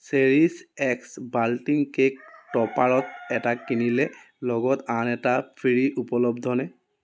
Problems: background sounds at intervals